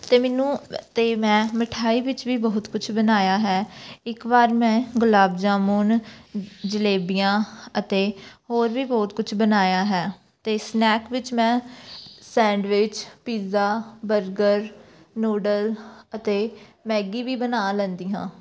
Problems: background sounds at intervals, background conversations at intervals